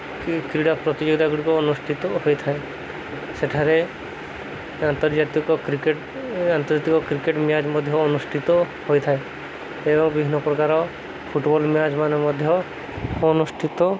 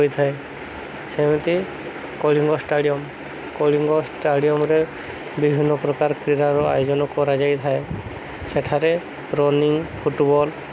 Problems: constant background noise